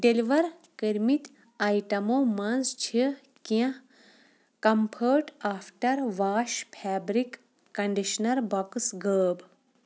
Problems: none marked